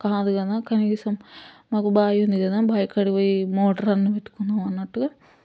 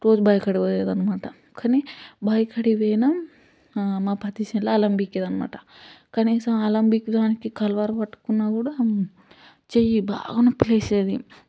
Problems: none marked